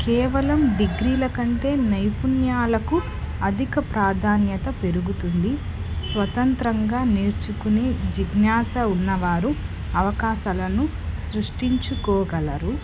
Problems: constant background noise, background conversations at intervals